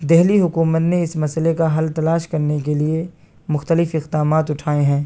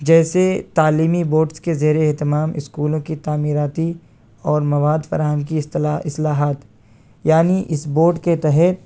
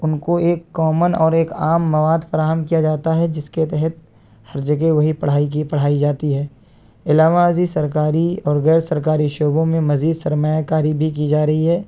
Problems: constant background noise